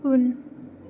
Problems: low volume